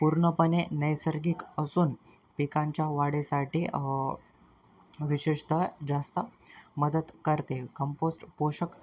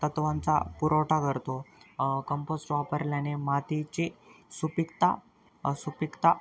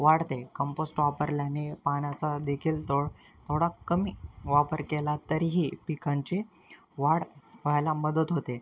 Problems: constant background noise, continuous background conversations